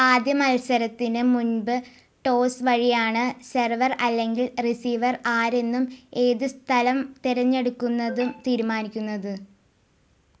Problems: background sounds at intervals